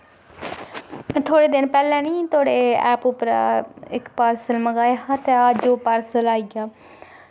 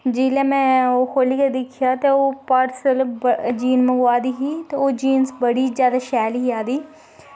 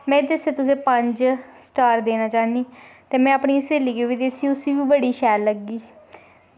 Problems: background sounds at intervals, echo